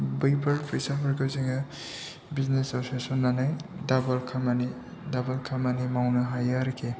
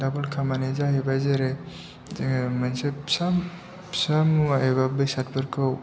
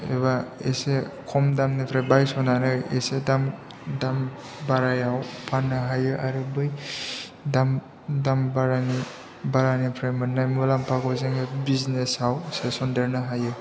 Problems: low volume